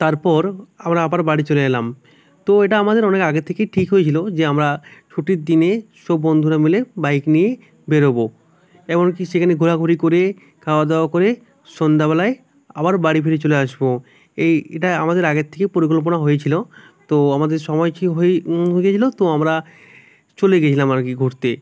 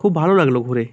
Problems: none marked